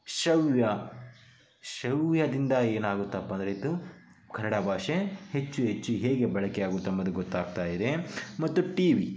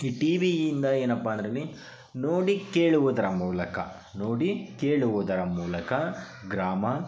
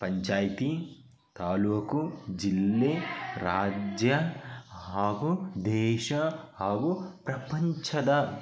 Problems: background conversations at intervals